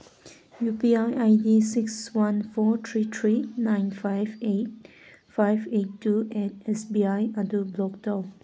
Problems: none marked